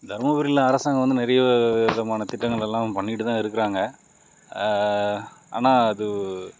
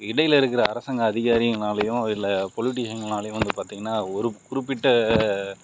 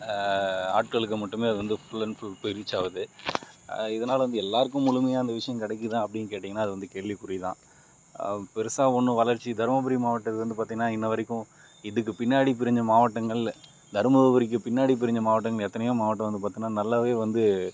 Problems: none marked